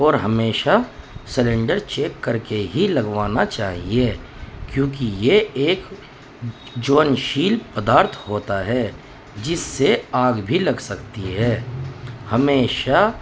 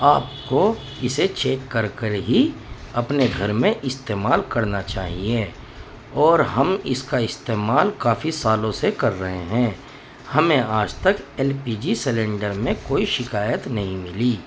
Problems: constant background noise